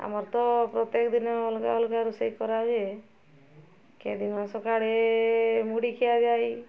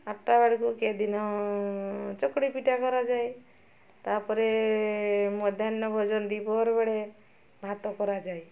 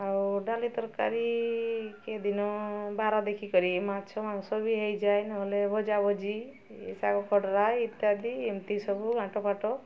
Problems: constant background noise